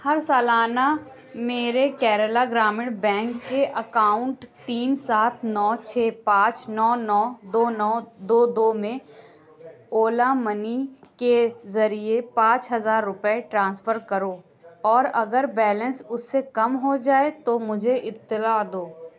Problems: constant background noise, background conversations at intervals